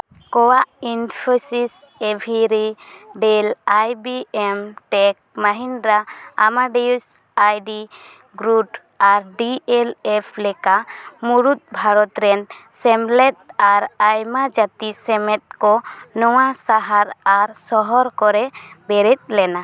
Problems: none marked